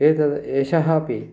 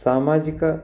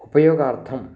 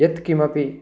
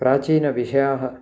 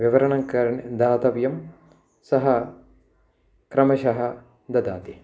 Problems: none marked